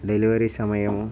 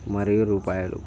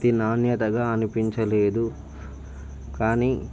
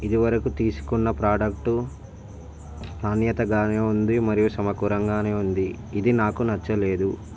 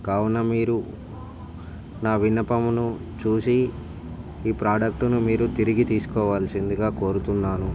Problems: none marked